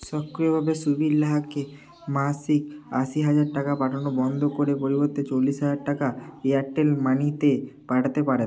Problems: constant background noise, continuous background conversations